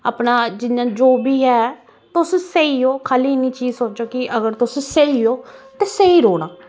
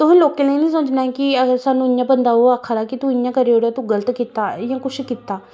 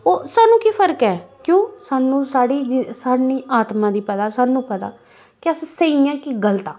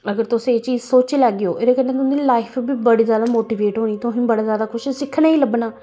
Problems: constant background noise